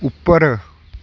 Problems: background sounds at intervals